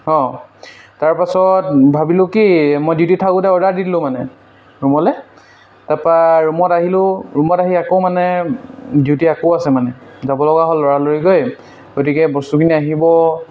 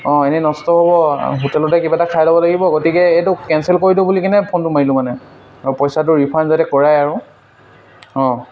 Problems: constant background noise